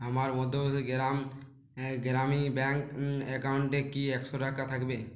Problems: constant background noise